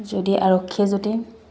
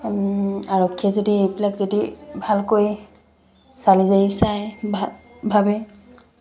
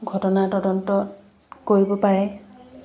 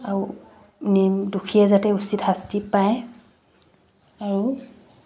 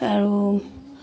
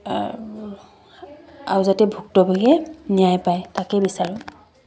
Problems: background sounds at intervals